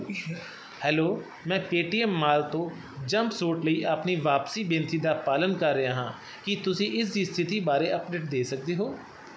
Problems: constant background noise